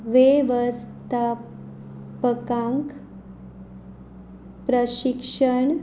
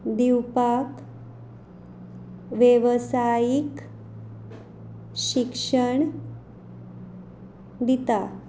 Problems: background sounds at intervals